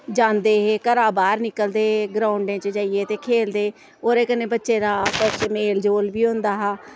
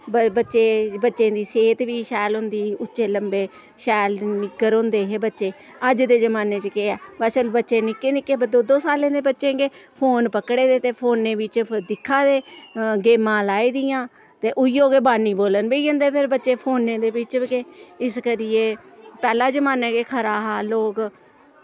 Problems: none marked